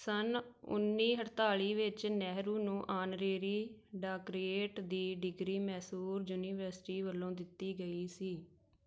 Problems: background sounds at intervals